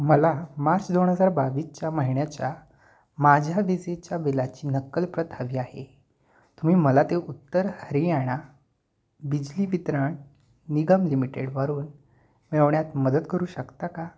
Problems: none marked